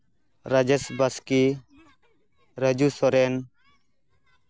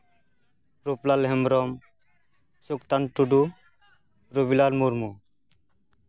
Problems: background conversations at intervals